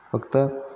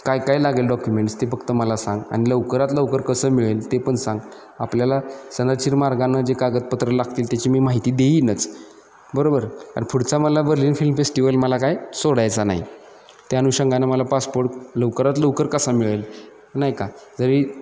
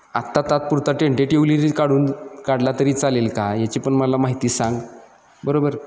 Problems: constant background noise, background conversations at intervals